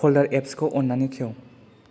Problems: low volume